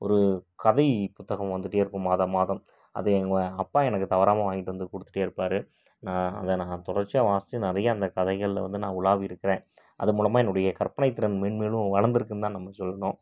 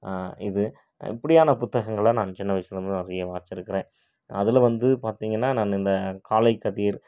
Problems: none marked